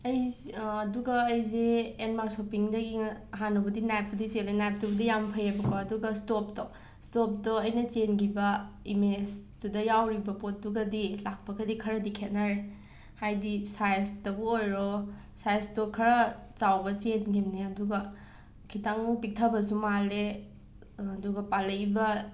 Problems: background sounds at intervals